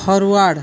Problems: constant background noise